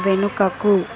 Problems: constant background noise